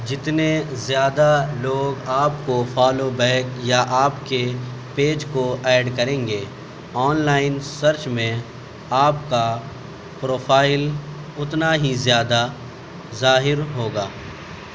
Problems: constant background noise